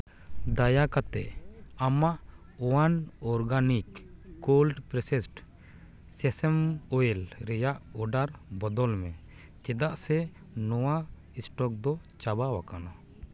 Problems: constant background noise